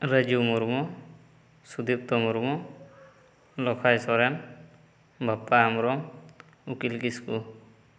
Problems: echo